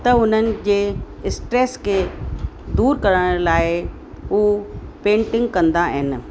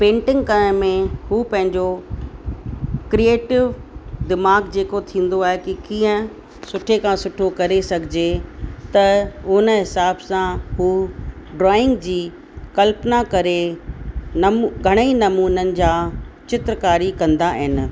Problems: constant background noise